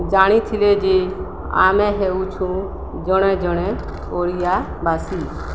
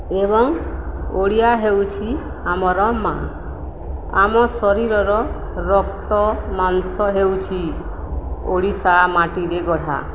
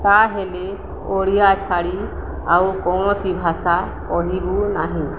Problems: none marked